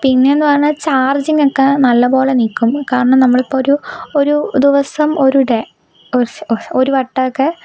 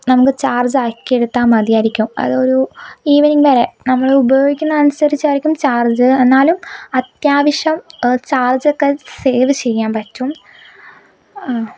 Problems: background sounds at intervals